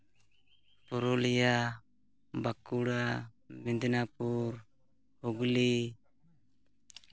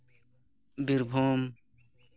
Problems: none marked